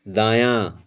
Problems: none marked